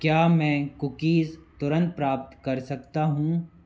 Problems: constant background noise